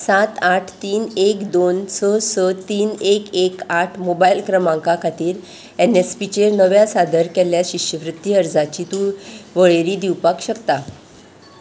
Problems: background sounds at intervals